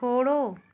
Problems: background conversations at intervals